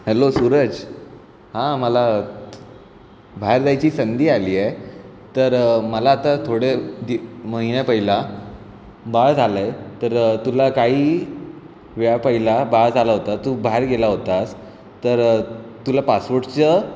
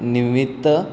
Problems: background sounds at intervals